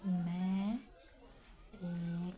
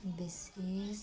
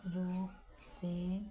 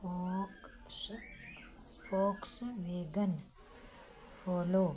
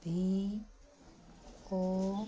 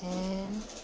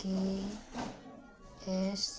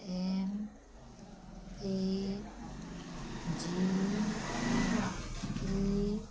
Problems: low volume